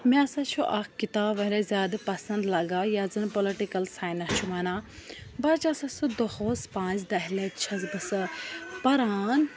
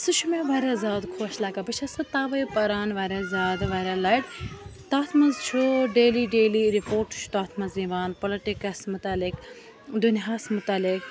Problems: constant background noise, continuous background conversations